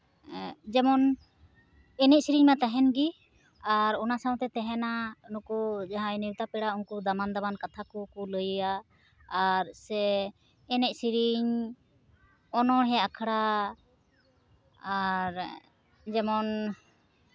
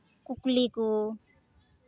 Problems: none marked